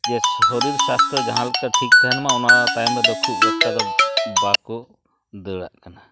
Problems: background sounds at intervals